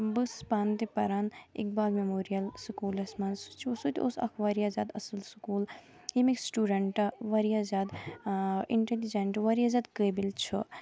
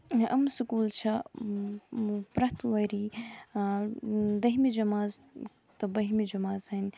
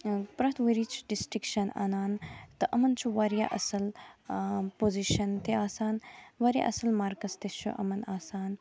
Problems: constant background noise, continuous background conversations